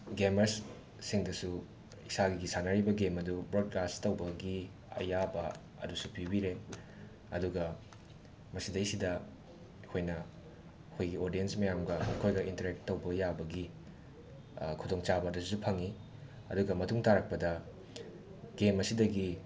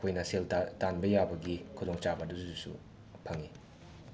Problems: background sounds at intervals, background conversations at intervals